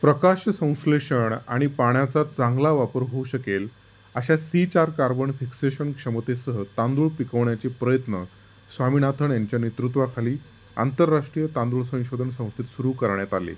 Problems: constant background noise